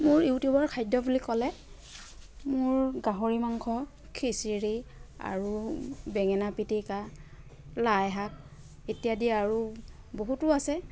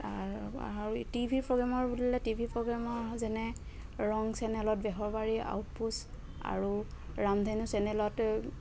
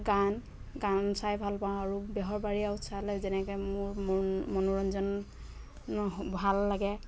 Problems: constant background noise